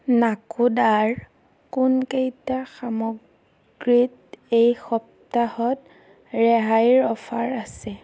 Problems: none marked